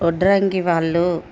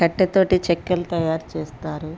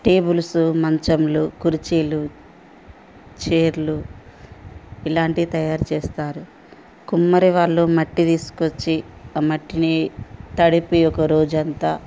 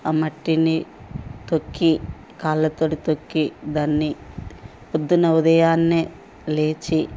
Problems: constant background noise